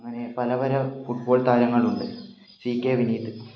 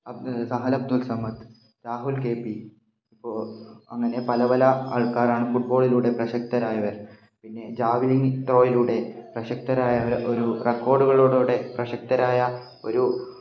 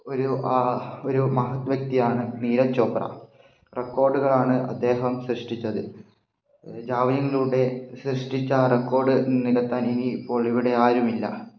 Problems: low volume